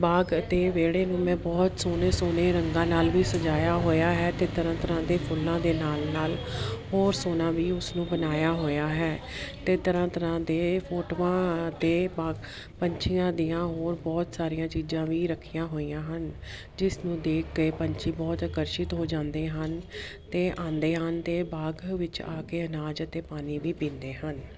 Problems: none marked